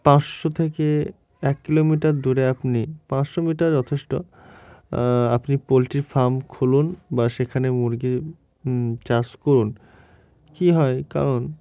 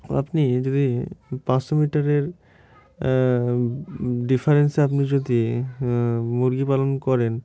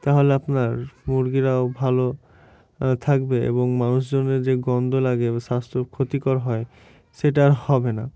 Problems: none marked